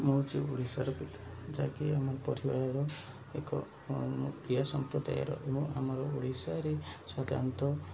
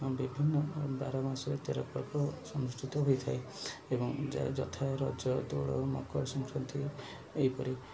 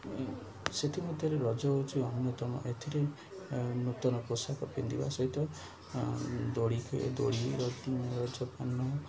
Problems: none marked